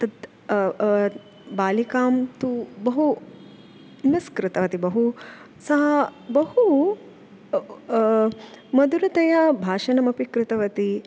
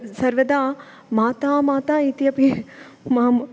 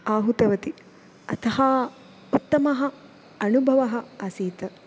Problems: none marked